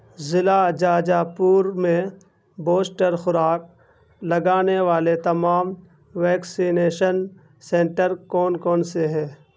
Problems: constant background noise